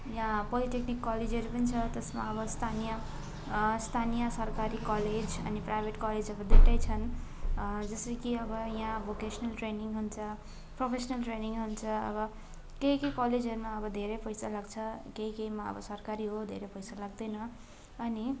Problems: constant background noise, continuous background conversations